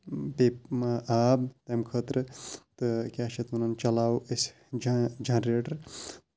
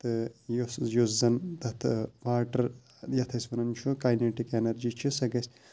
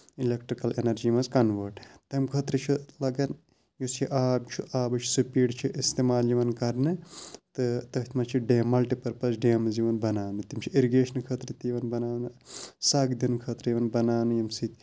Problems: background sounds at intervals